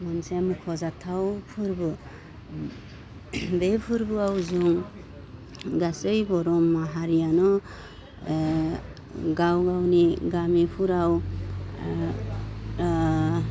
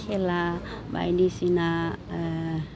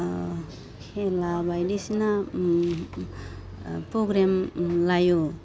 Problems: constant background noise